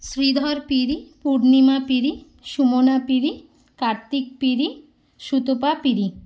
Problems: constant background noise